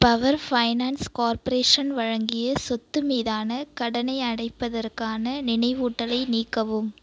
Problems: none marked